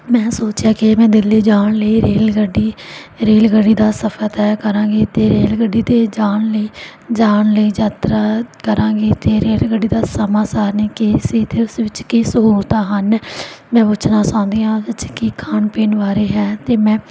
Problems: background sounds at intervals